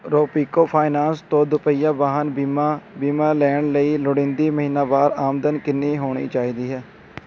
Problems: none marked